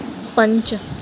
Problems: background sounds at intervals